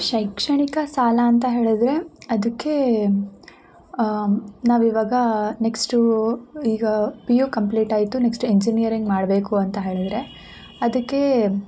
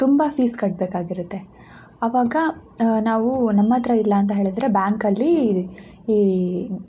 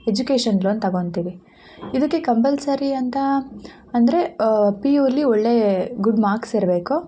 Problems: none marked